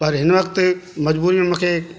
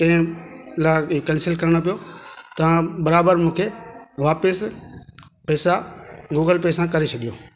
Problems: constant background noise